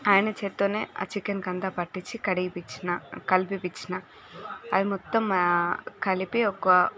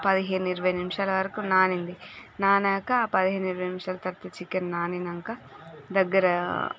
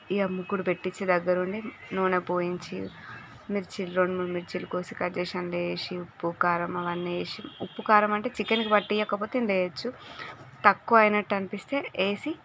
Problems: background sounds at intervals